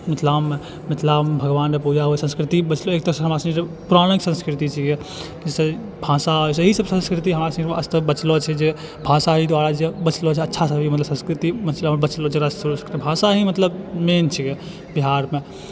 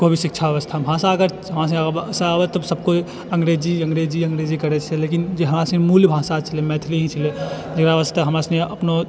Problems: background sounds at intervals